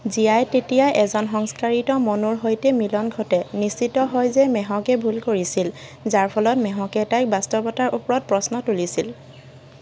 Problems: constant background noise